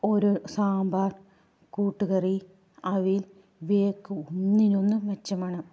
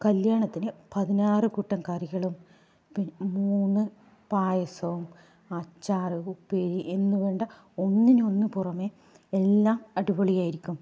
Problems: low volume